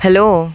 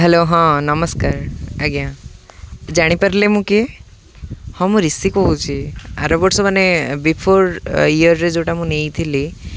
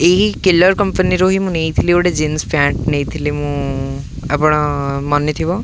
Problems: none marked